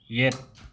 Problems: background sounds at intervals